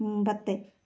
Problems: low volume